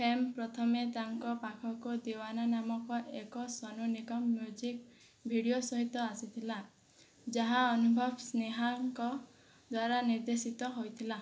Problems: low volume